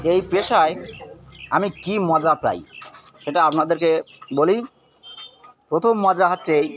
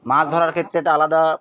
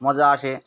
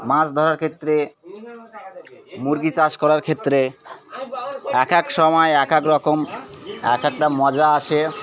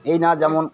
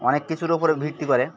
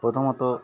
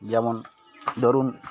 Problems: constant background noise, background conversations at intervals